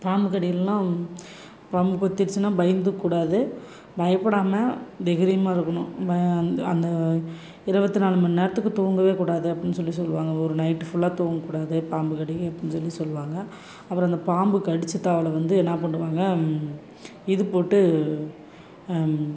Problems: background sounds at intervals